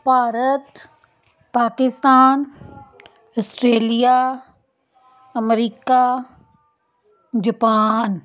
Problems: continuous background conversations